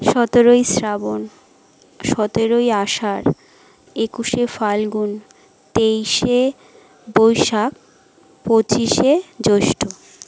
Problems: none marked